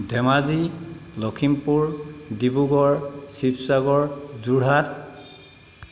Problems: constant background noise